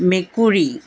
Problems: none marked